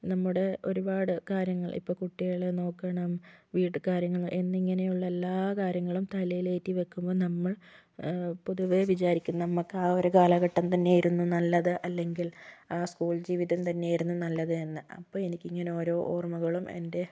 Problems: none marked